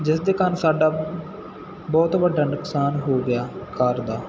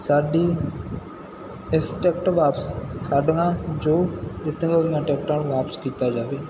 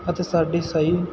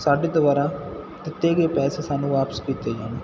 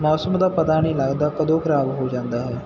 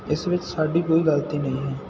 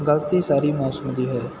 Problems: none marked